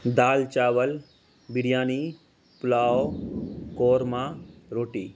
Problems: constant background noise